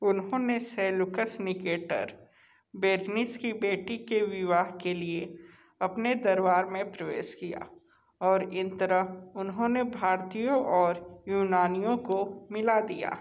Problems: echo